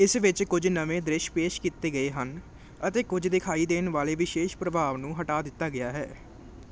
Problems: none marked